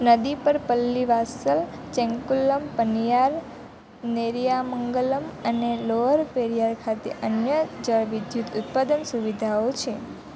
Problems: constant background noise